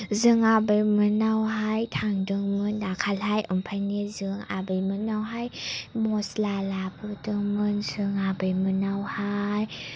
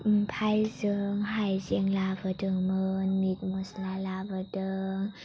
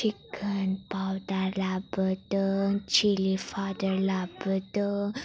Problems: low volume